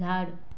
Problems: none marked